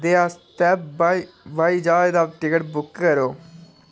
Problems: background sounds at intervals